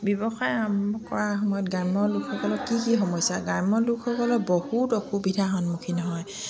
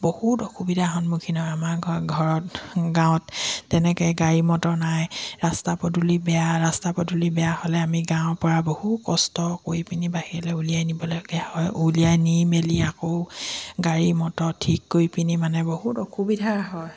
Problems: none marked